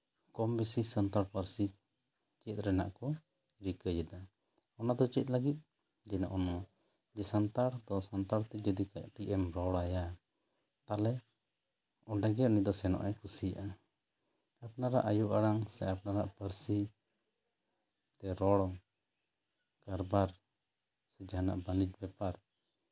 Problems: low volume